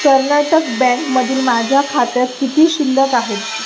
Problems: constant background noise